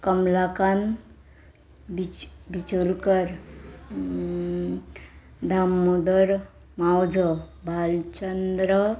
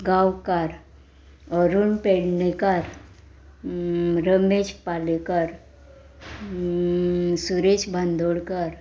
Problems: none marked